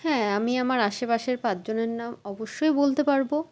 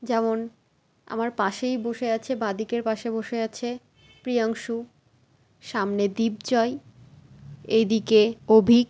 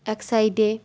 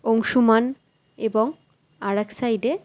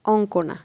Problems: constant background noise